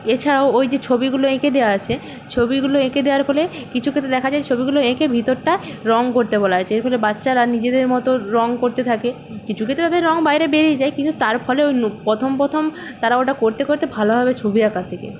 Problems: none marked